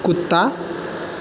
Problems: none marked